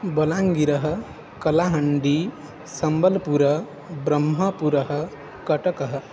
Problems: constant background noise